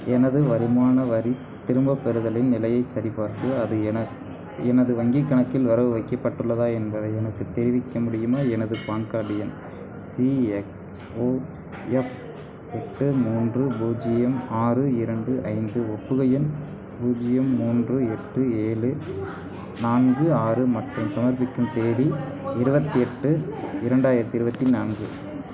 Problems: constant background noise, continuous background conversations